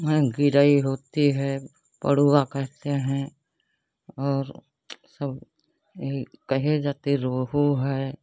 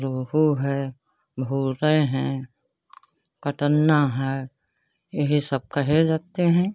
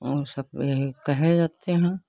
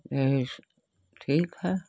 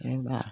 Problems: constant background noise